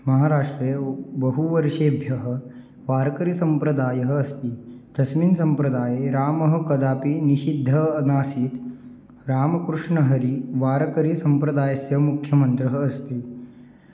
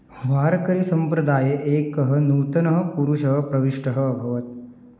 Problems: none marked